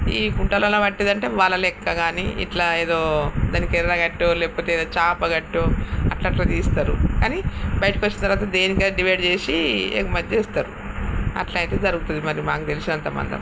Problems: constant background noise